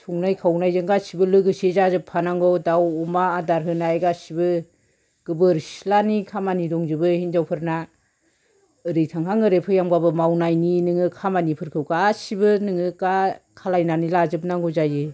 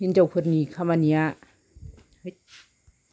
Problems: background sounds at intervals